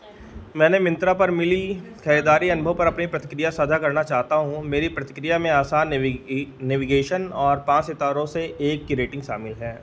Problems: background sounds at intervals